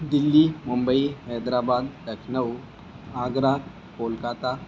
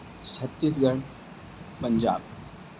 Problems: constant background noise